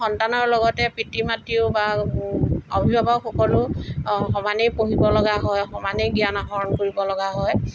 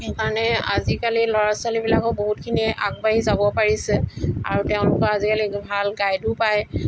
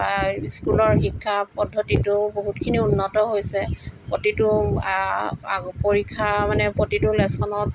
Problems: background sounds at intervals